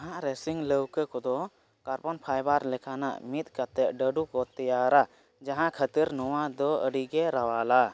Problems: none marked